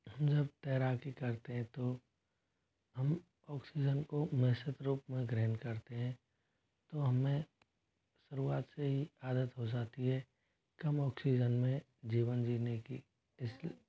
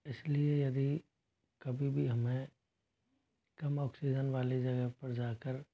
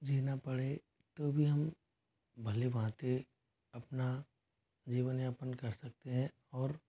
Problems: low volume